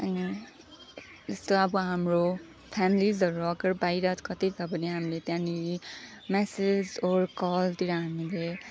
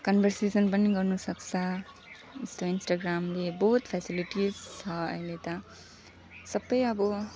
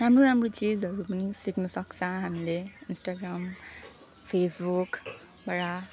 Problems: background sounds at intervals